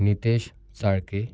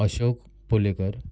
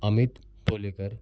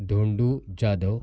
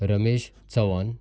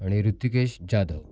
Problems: background sounds at intervals